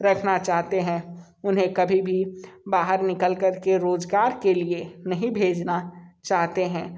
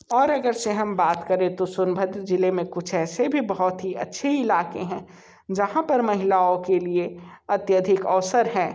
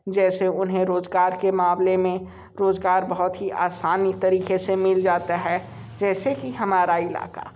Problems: none marked